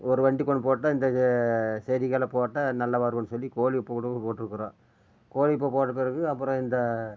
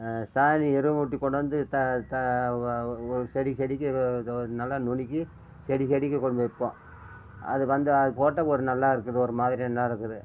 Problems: none marked